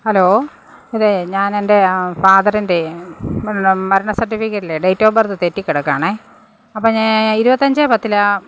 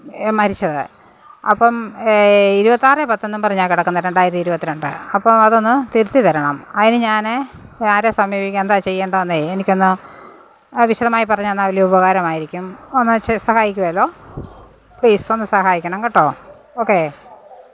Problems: none marked